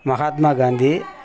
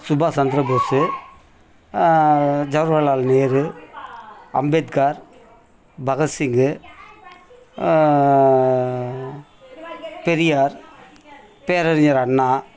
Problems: continuous background conversations